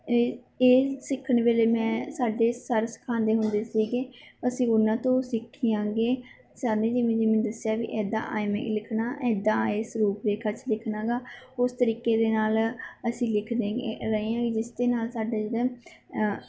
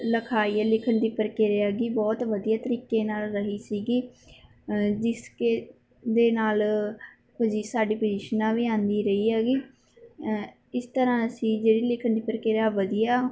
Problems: background sounds at intervals